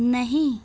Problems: none marked